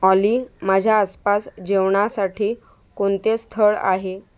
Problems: background sounds at intervals